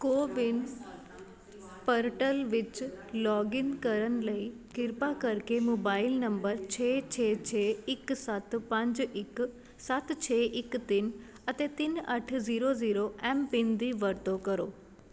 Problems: constant background noise